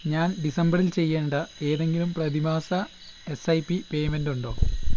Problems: none marked